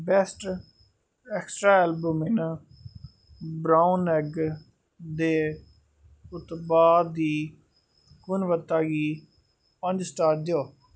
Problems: background sounds at intervals